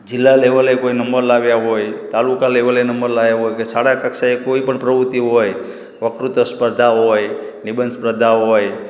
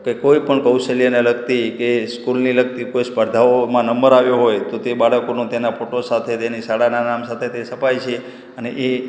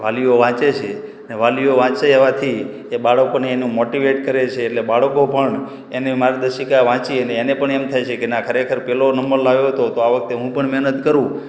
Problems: background sounds at intervals, echo